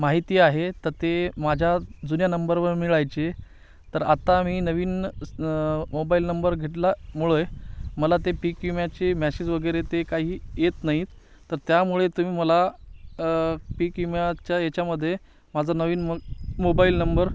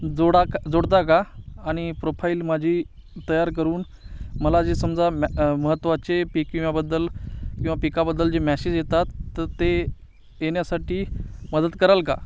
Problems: none marked